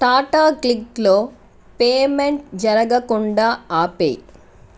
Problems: none marked